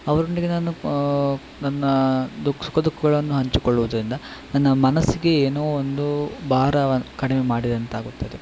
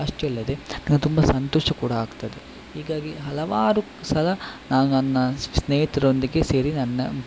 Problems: constant background noise